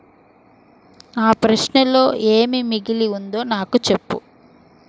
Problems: constant background noise